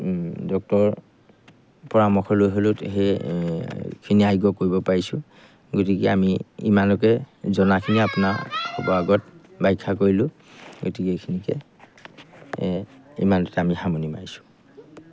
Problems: background sounds at intervals